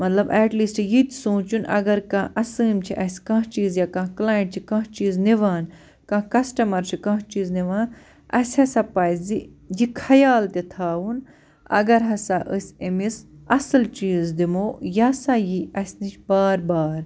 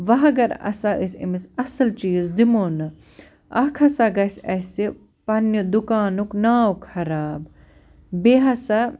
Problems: none marked